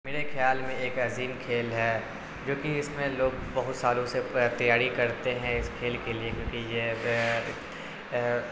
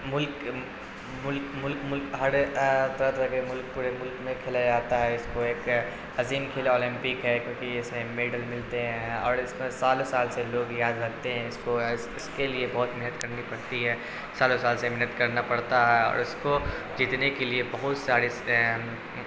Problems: constant background noise